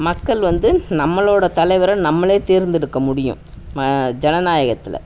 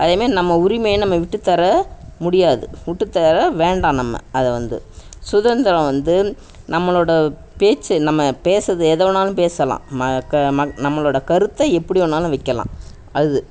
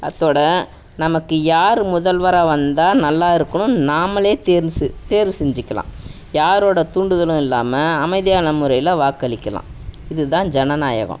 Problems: background sounds at intervals